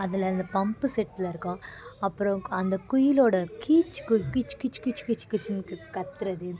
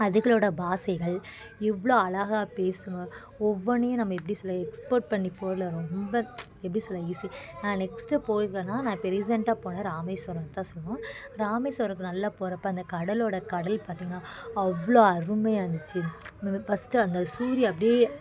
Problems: constant background noise, continuous background conversations